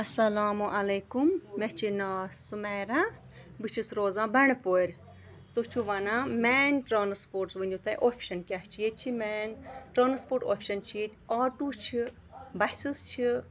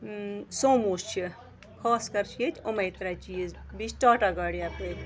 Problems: background sounds at intervals